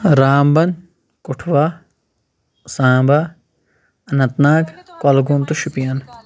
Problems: none marked